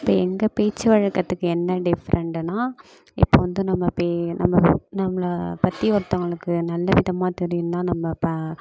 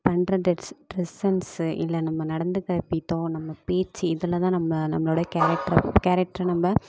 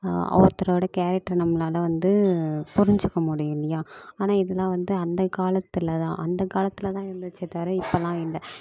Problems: constant background noise